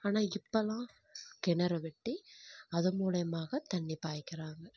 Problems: none marked